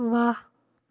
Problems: none marked